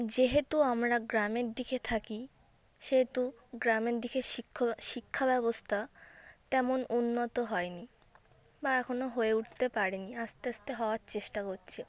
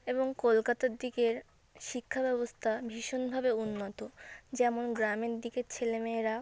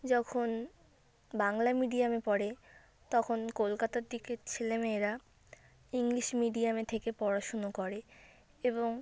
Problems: none marked